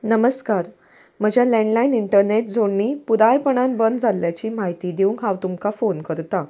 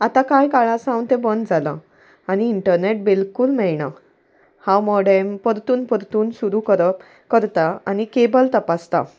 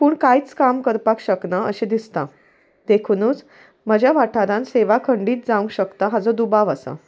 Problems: none marked